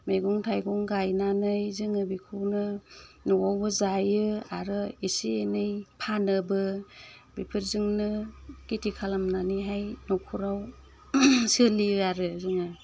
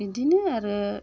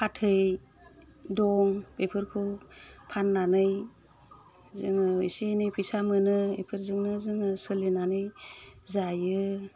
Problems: constant background noise